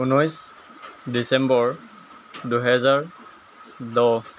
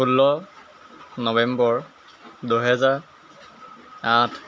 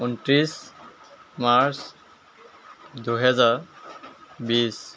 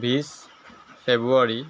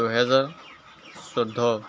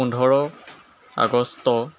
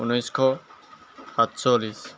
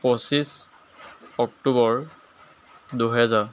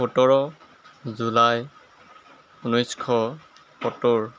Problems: constant background noise